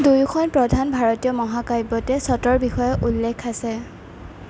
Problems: constant background noise